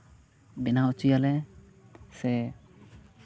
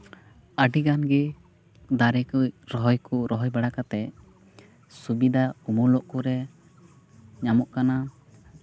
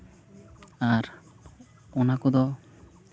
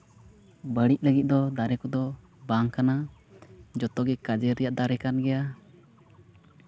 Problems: none marked